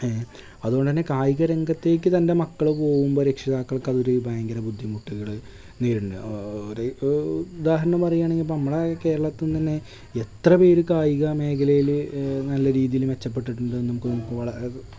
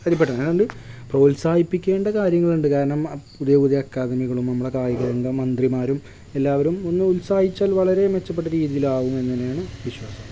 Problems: background sounds at intervals